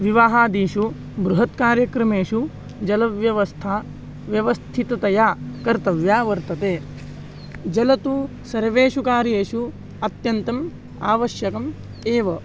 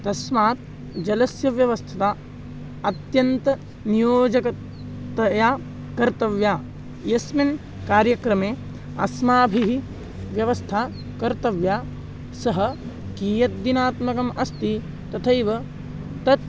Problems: constant background noise